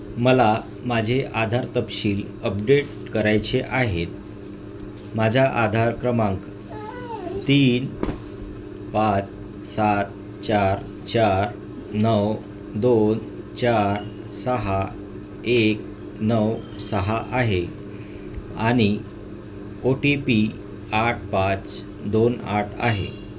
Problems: constant background noise